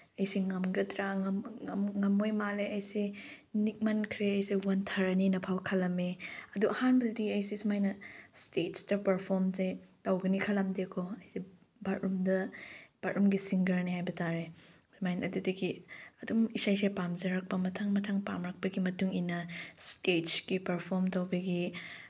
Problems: none marked